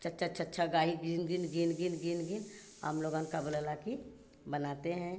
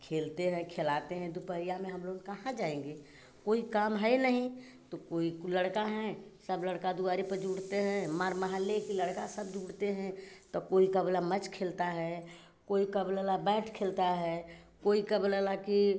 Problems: none marked